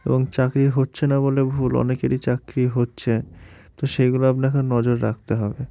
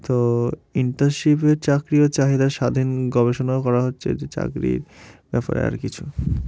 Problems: background sounds at intervals